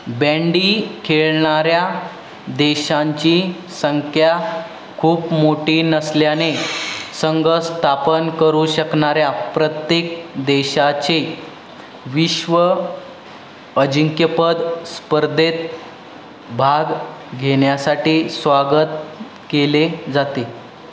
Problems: constant background noise, background conversations at intervals